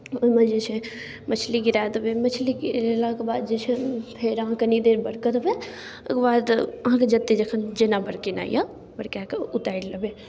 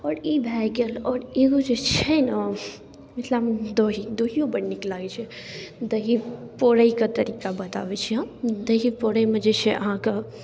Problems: none marked